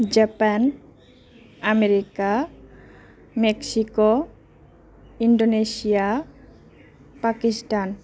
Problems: none marked